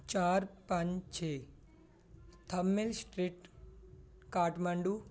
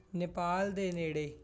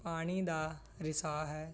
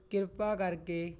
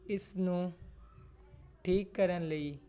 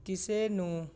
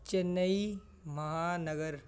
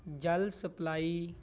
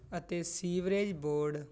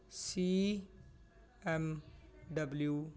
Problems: background sounds at intervals